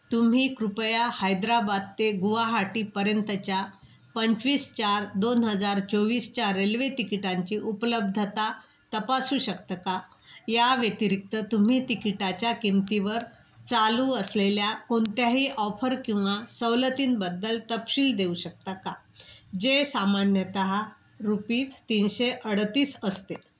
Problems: constant background noise